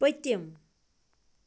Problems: constant background noise